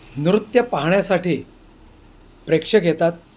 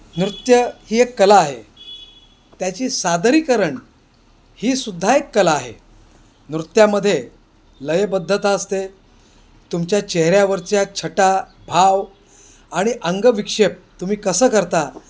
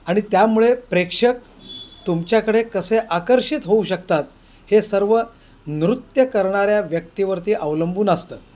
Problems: constant background noise